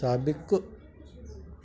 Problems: constant background noise, echo